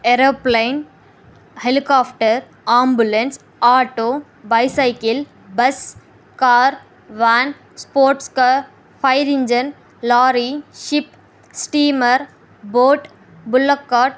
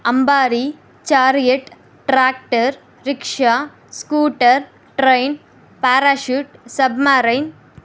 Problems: none marked